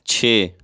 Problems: none marked